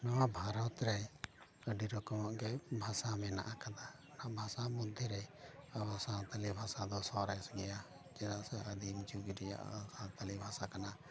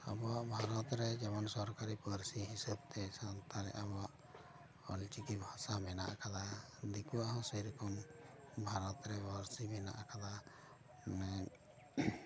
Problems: continuous background conversations